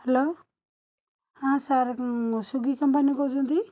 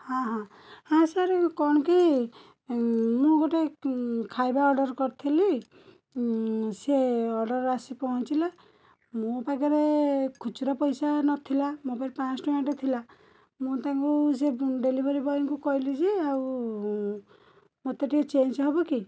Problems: none marked